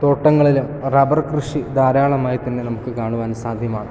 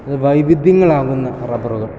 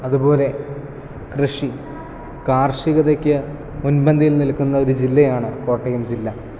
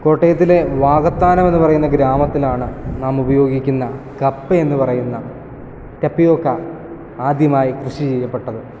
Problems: background conversations at intervals